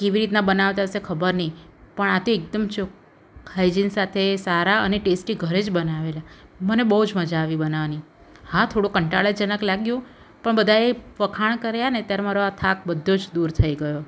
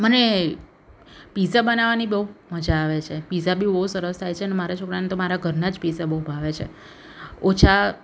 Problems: none marked